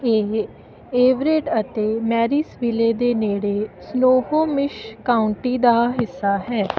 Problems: constant background noise